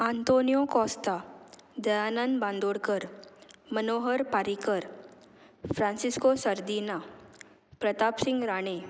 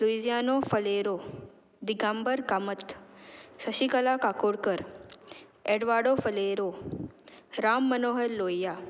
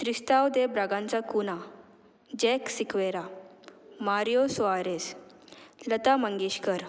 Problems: background sounds at intervals